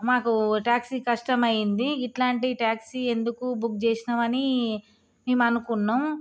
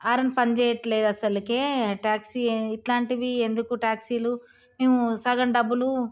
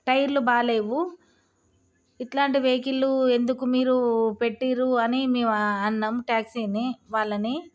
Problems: none marked